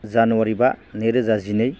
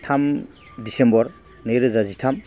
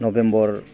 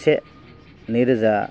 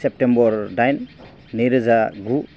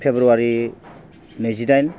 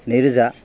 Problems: none marked